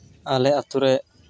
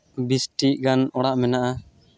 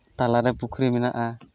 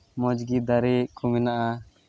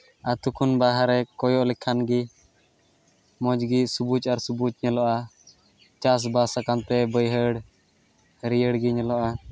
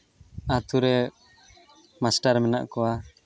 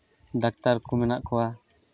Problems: none marked